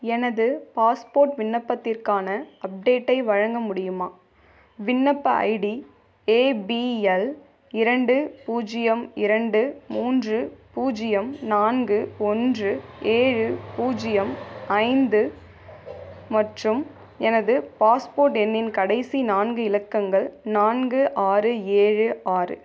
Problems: background sounds at intervals